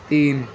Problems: constant background noise